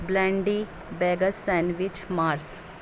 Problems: constant background noise